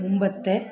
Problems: none marked